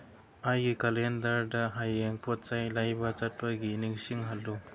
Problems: none marked